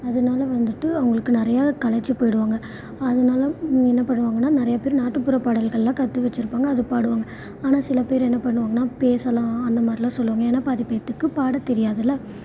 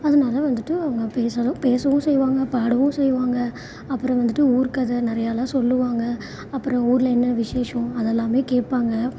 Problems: constant background noise